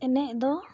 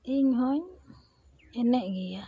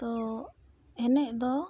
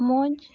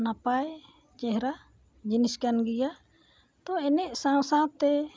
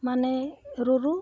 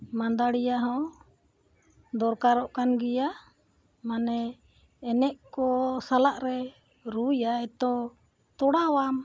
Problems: background sounds at intervals